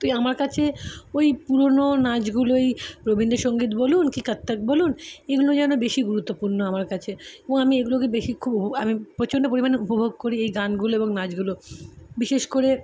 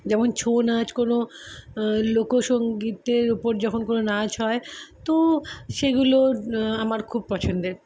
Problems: none marked